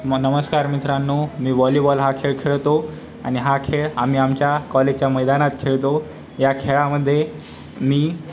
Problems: constant background noise, continuous background conversations